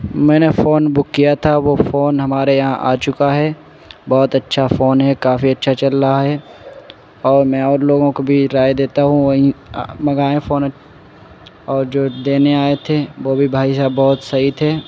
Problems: constant background noise